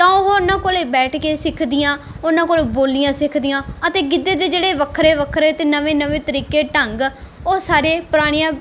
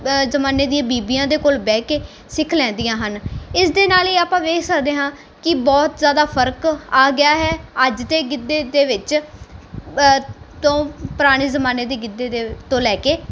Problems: background sounds at intervals